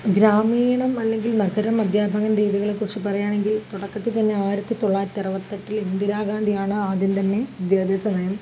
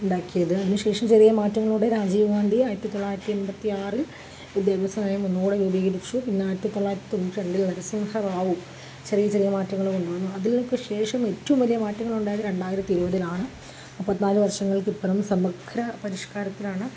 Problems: constant background noise